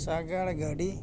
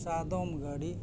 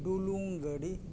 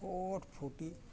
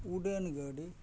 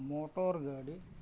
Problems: none marked